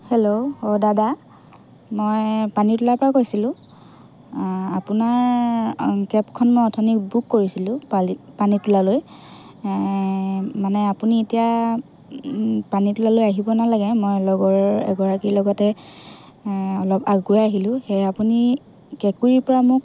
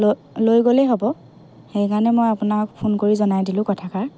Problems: continuous background conversations